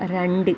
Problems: none marked